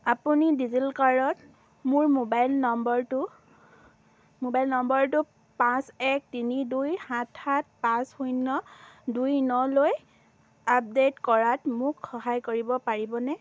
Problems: none marked